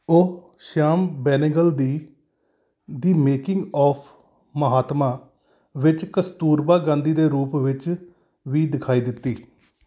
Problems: background sounds at intervals